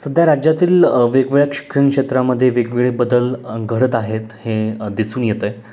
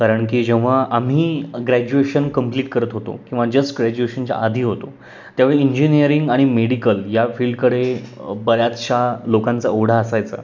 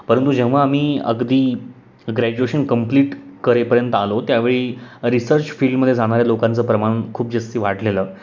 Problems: constant background noise, background conversations at intervals